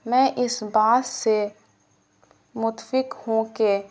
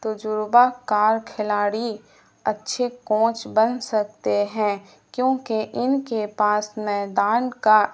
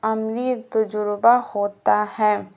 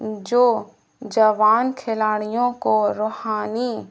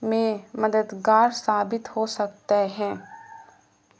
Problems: constant background noise